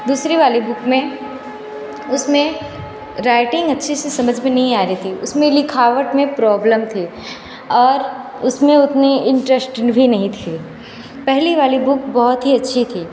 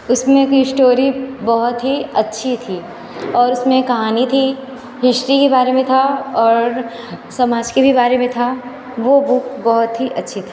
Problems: constant background noise, background conversations at intervals